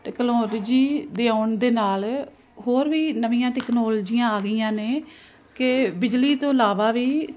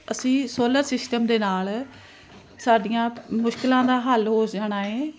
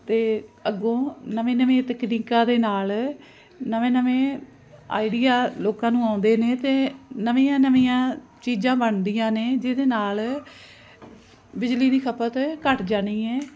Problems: constant background noise